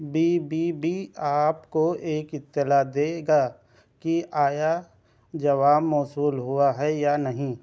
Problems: constant background noise